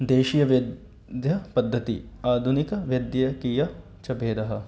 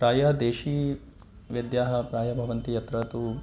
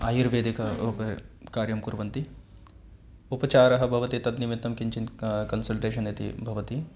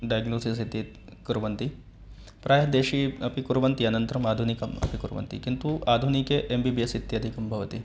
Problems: background conversations at intervals